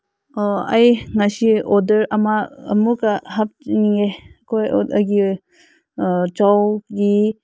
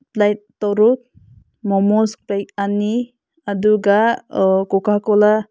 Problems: constant background noise